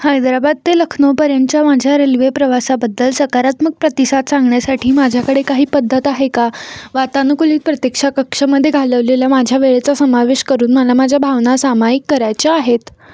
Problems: constant background noise